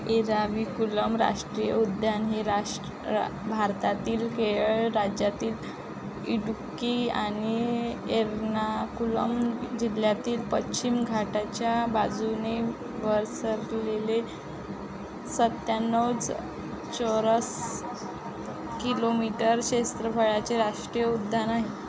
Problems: constant background noise, continuous background conversations